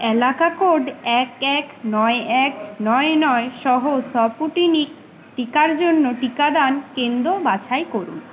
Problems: constant background noise